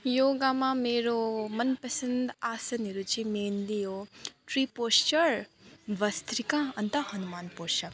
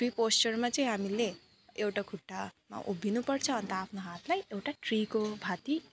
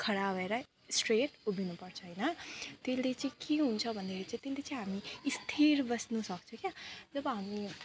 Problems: none marked